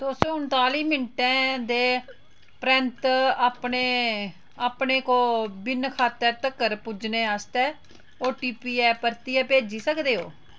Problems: none marked